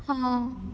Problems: constant background noise, low volume